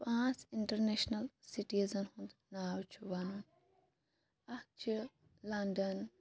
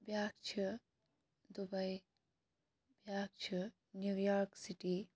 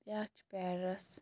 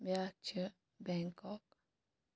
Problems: background sounds at intervals